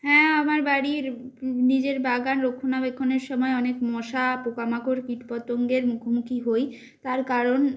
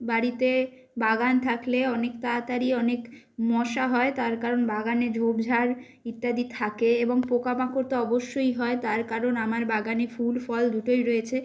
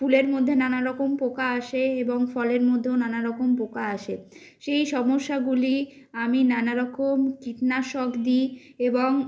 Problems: constant background noise